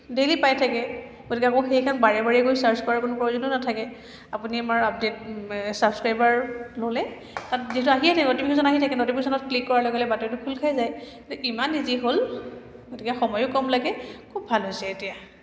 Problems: background sounds at intervals